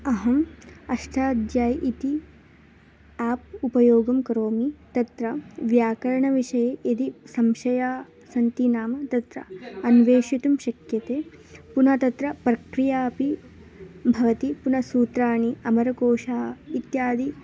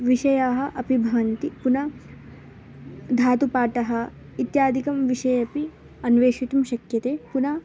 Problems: background sounds at intervals